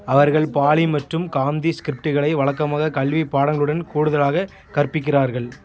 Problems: continuous background conversations